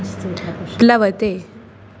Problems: constant background noise